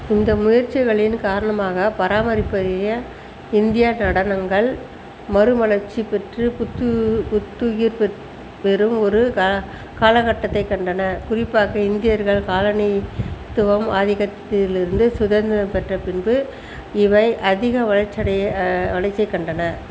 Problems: constant background noise